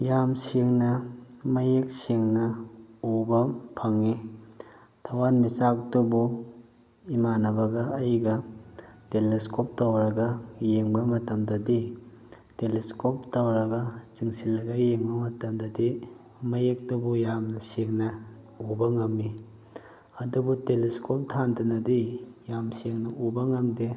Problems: none marked